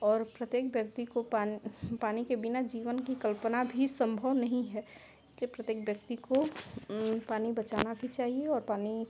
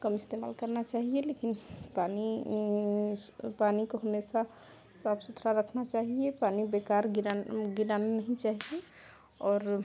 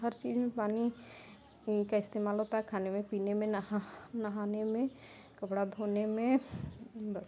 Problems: constant background noise